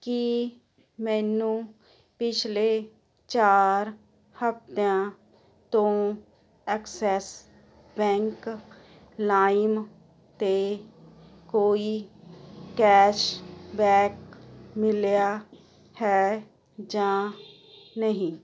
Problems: constant background noise